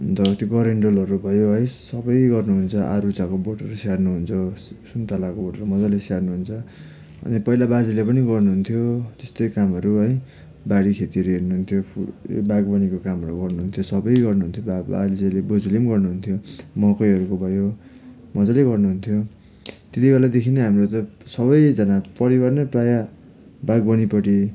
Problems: background sounds at intervals